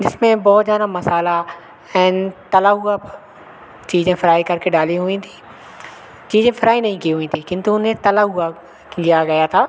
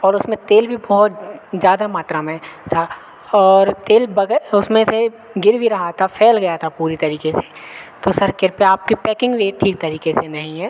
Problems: constant background noise